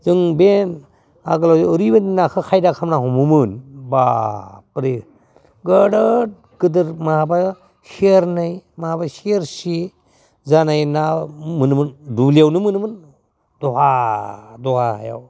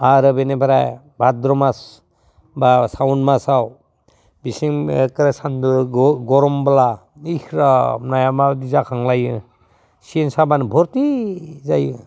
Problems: constant background noise